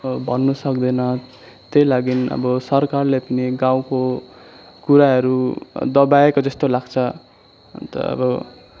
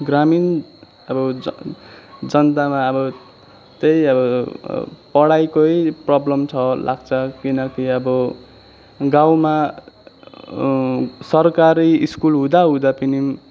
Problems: none marked